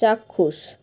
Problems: constant background noise